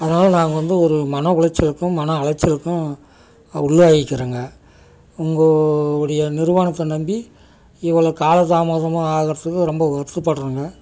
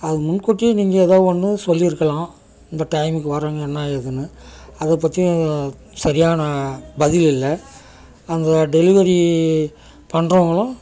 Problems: constant background noise